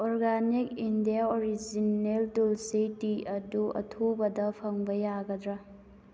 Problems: none marked